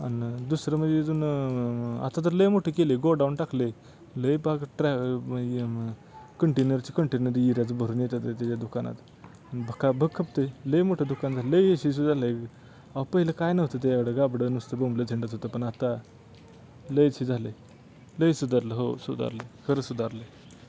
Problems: background sounds at intervals